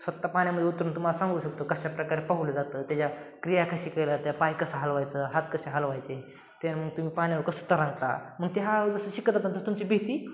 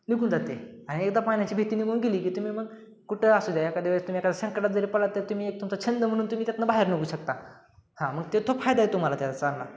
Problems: constant background noise